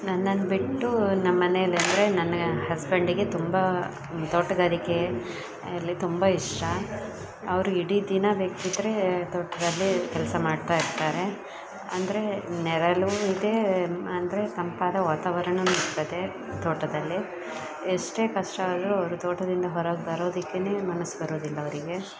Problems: background sounds at intervals, background conversations at intervals